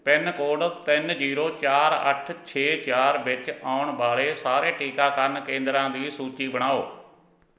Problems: background sounds at intervals